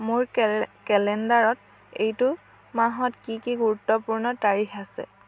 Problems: constant background noise